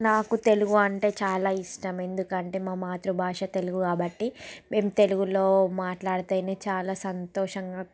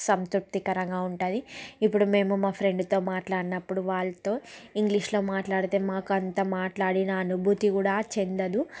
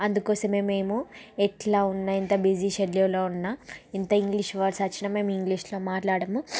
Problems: background sounds at intervals